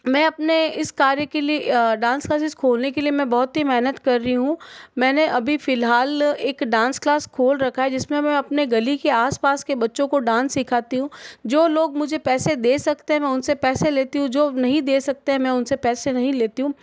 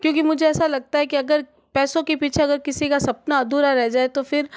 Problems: constant background noise